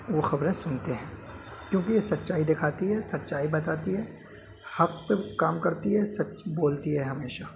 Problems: constant background noise